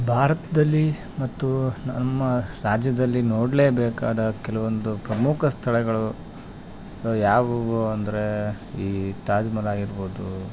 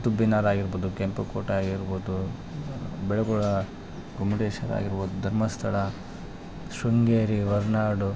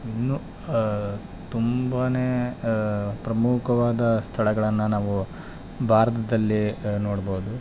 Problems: background conversations at intervals